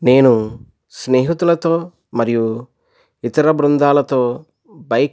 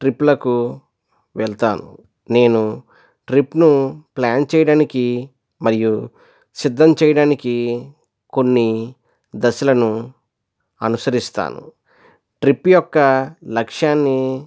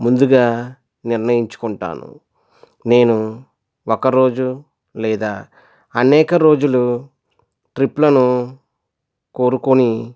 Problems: none marked